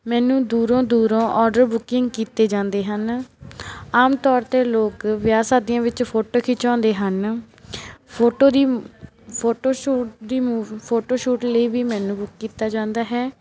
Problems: none marked